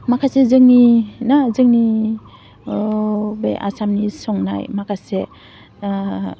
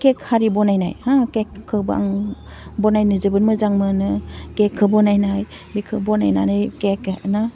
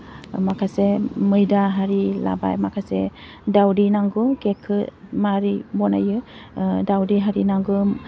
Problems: none marked